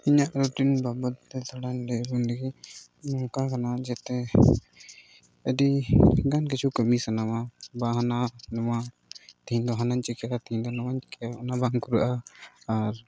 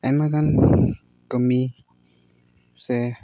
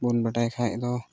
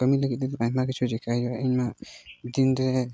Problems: none marked